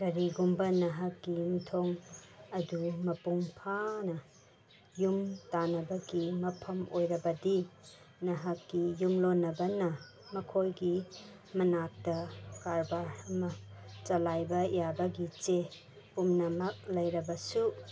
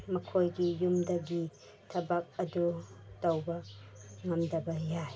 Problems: background sounds at intervals